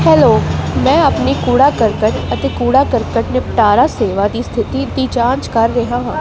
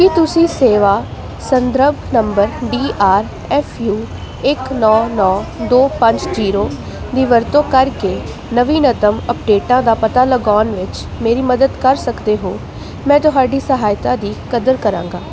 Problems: constant background noise